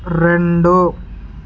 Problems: constant background noise